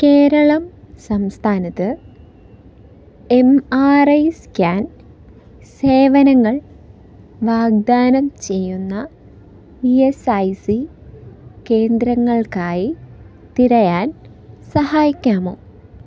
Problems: none marked